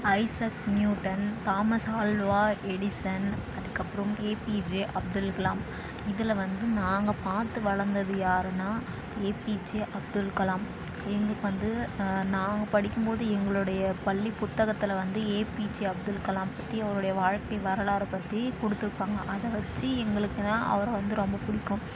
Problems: constant background noise, background conversations at intervals